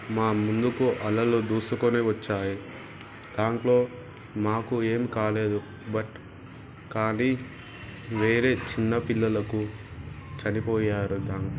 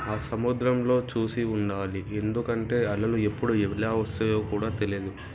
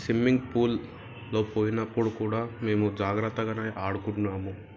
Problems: background sounds at intervals